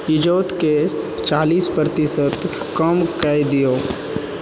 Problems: constant background noise